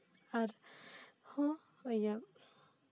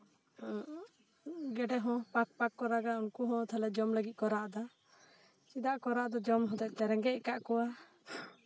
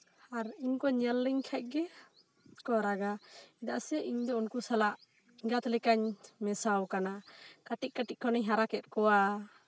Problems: background conversations at intervals